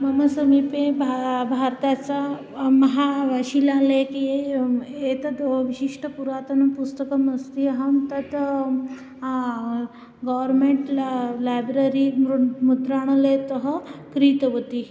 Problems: background conversations at intervals